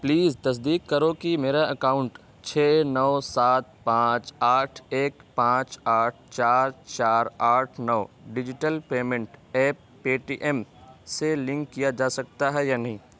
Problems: constant background noise